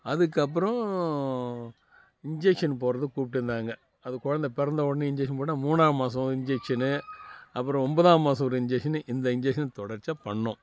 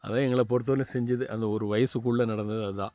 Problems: background sounds at intervals